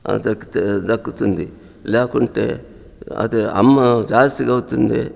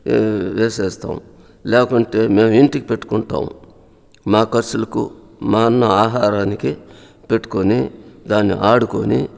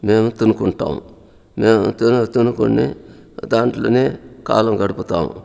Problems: constant background noise